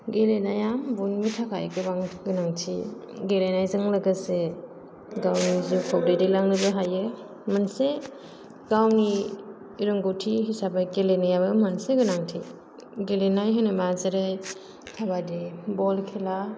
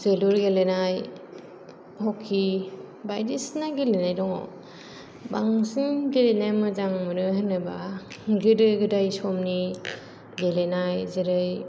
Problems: none marked